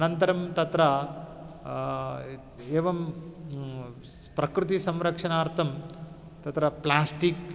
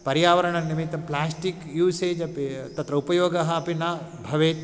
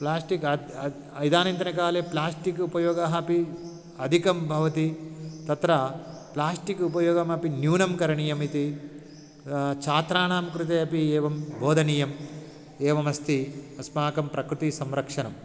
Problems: background sounds at intervals